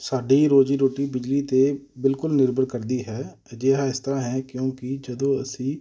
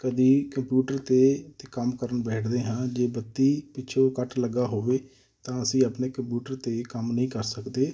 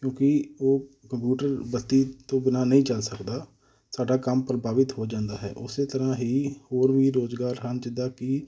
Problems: none marked